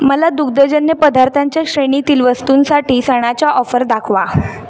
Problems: none marked